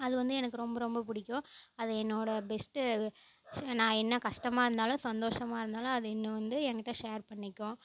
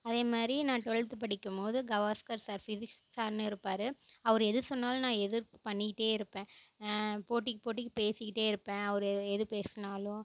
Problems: none marked